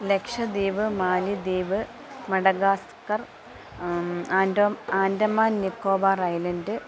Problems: background sounds at intervals, low volume